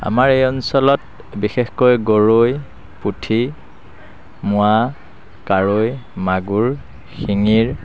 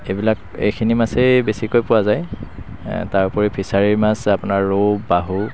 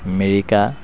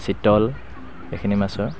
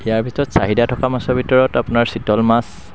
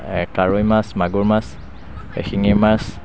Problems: constant background noise